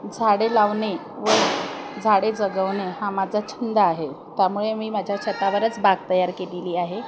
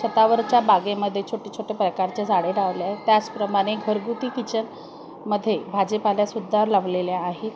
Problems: constant background noise, continuous background conversations